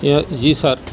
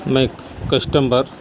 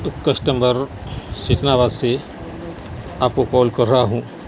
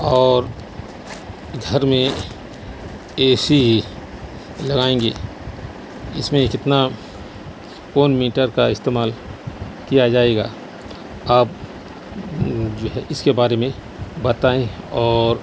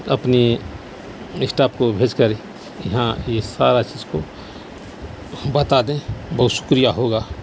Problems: constant background noise